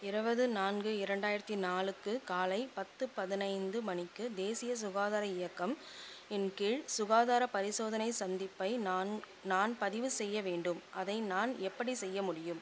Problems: constant background noise, low volume